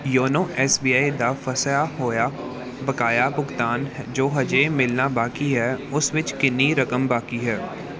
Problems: background conversations at intervals